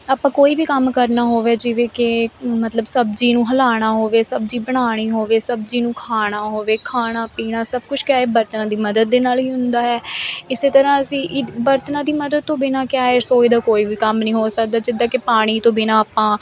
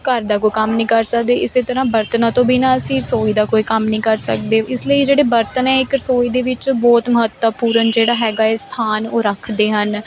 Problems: background sounds at intervals